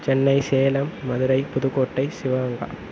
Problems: constant background noise